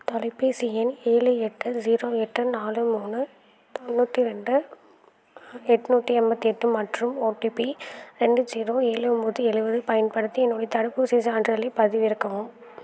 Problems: background sounds at intervals